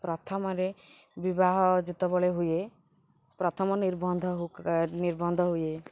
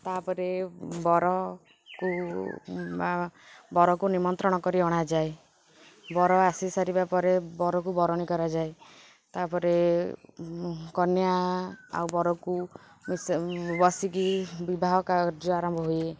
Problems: none marked